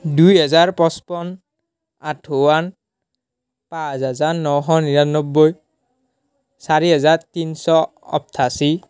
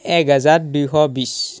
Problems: none marked